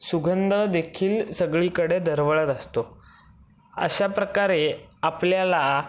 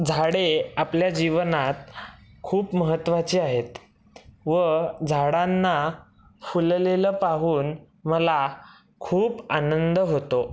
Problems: none marked